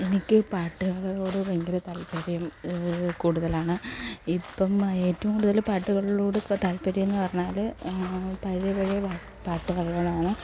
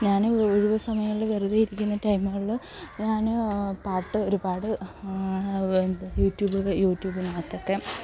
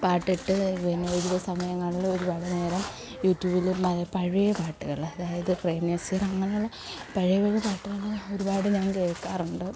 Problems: background sounds at intervals